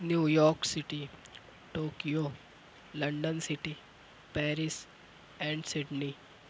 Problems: none marked